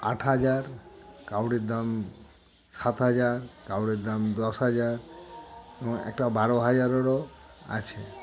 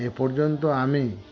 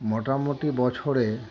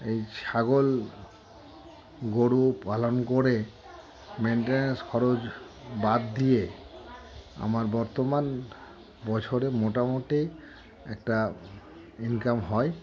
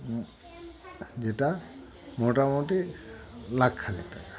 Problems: constant background noise, background conversations at intervals